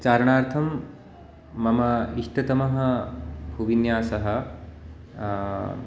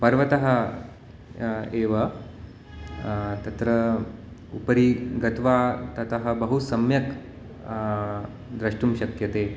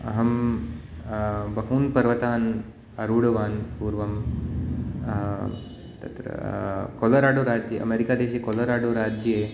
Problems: none marked